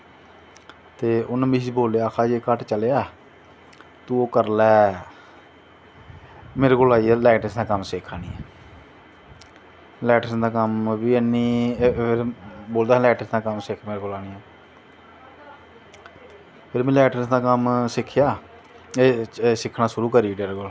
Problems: none marked